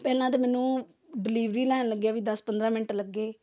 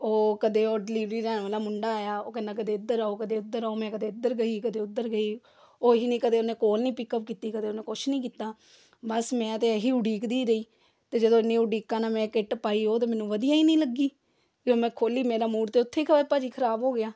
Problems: background sounds at intervals